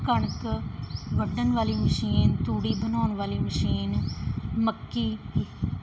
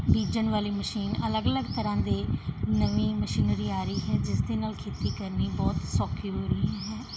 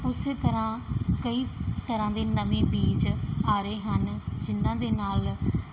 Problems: none marked